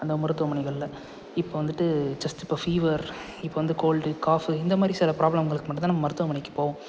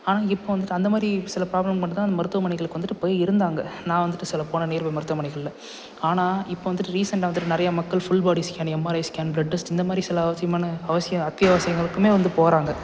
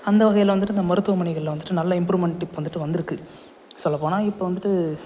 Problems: constant background noise